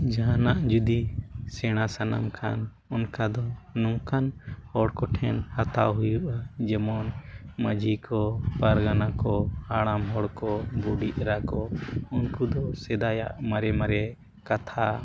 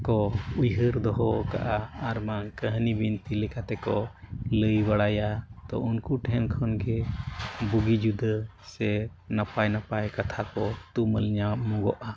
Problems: background sounds at intervals